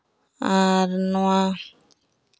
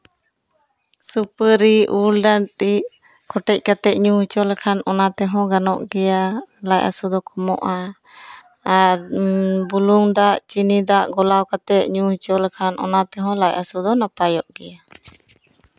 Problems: background sounds at intervals, background conversations at intervals